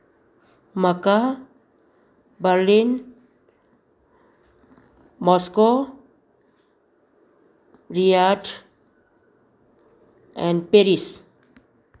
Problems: none marked